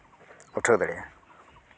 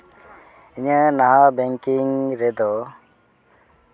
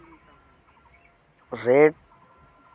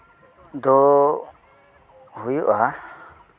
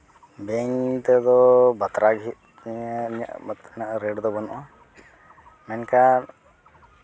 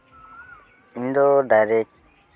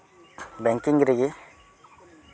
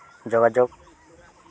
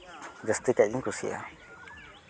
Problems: background conversations at intervals